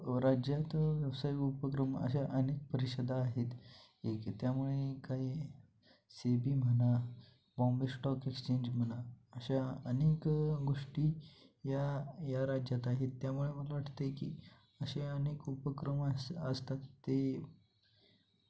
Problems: constant background noise